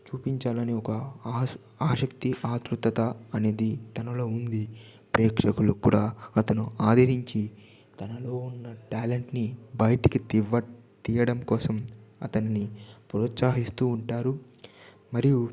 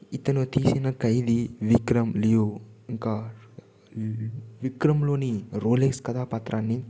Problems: background sounds at intervals, low volume